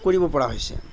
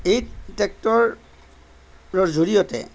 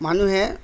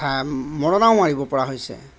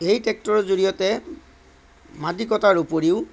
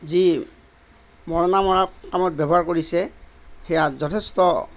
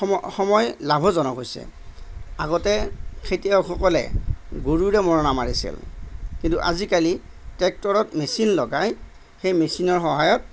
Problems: none marked